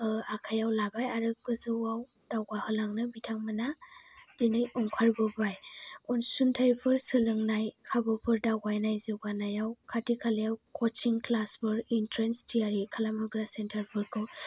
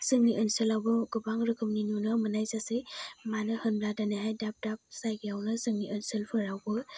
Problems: low volume